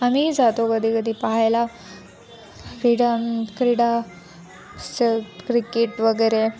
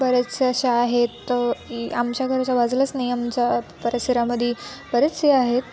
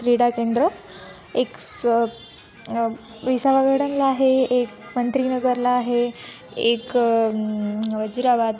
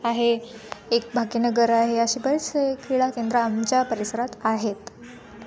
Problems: constant background noise, background conversations at intervals